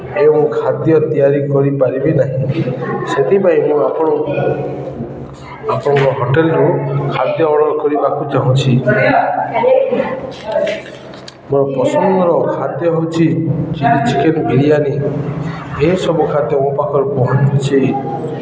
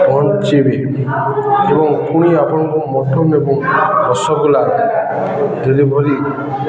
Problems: constant background noise, continuous background conversations